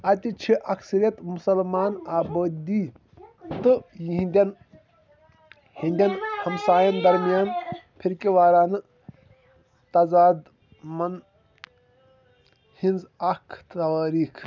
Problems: constant background noise, background conversations at intervals